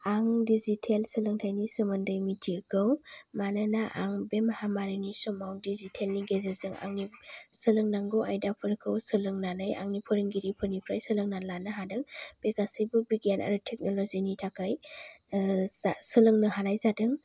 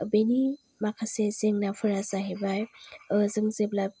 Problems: none marked